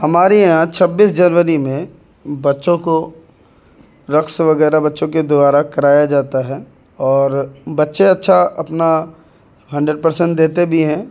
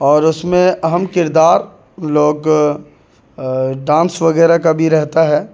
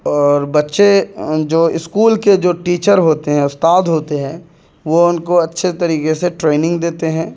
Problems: background sounds at intervals